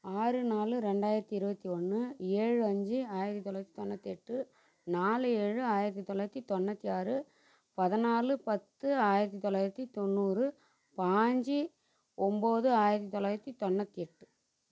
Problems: constant background noise, low volume